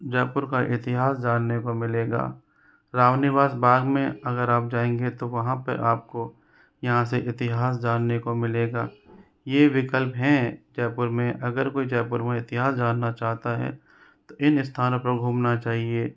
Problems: background conversations at intervals